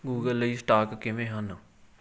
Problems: none marked